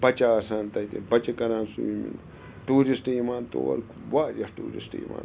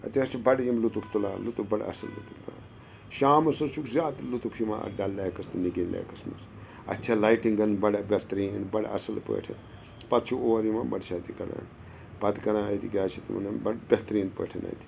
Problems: constant background noise